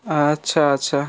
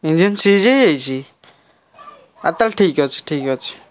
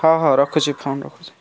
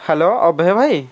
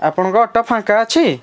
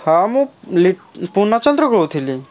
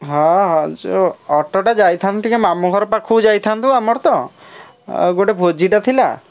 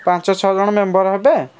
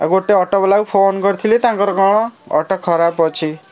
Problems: constant background noise